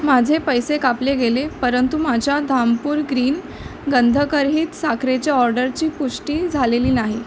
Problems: none marked